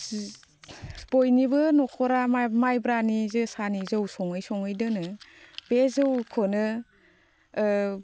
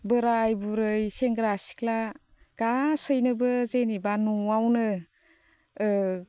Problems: constant background noise